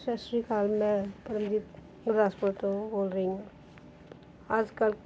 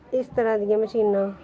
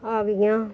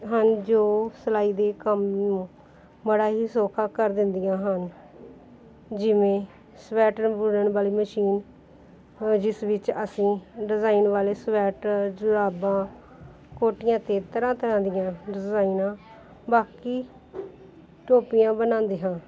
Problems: continuous background conversations